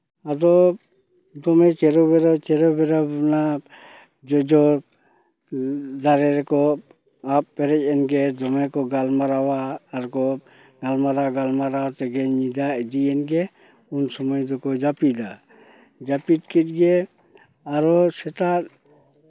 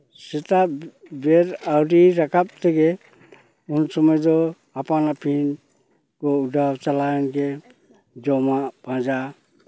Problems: background sounds at intervals